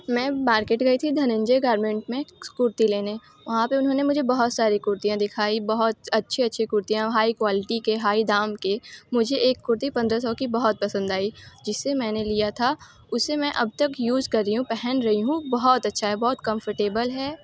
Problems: constant background noise